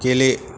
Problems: constant background noise